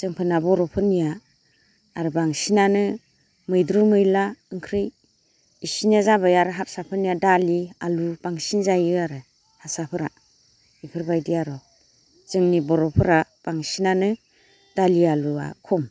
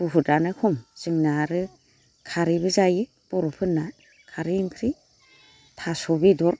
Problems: constant background noise